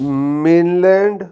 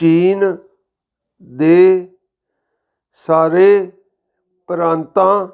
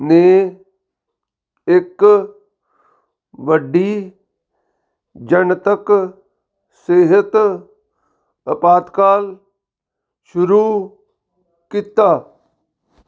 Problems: background sounds at intervals